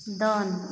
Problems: constant background noise, background conversations at intervals